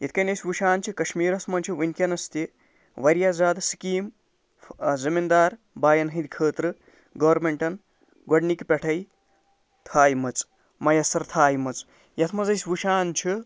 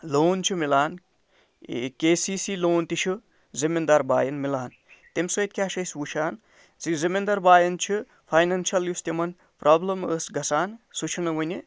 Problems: none marked